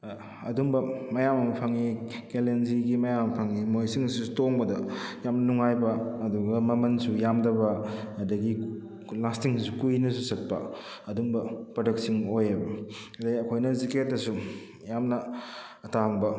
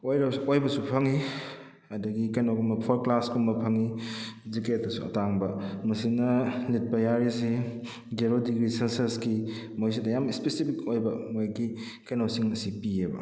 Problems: none marked